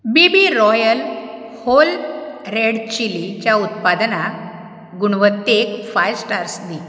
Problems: background sounds at intervals